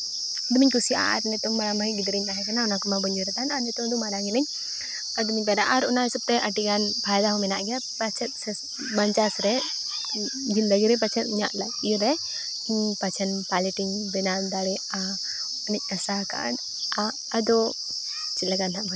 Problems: constant background noise, background conversations at intervals